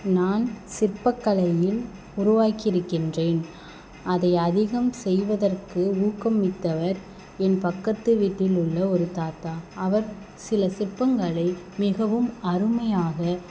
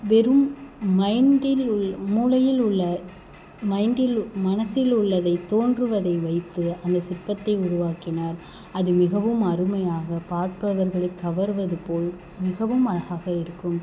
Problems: background sounds at intervals